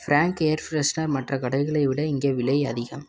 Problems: background conversations at intervals